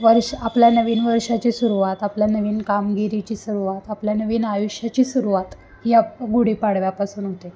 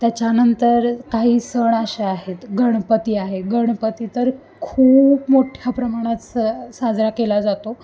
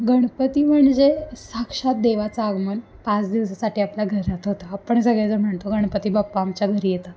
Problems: none marked